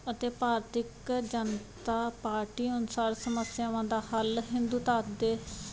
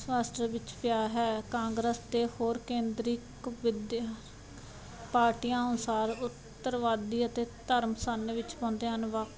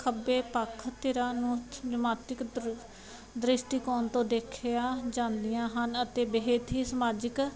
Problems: background sounds at intervals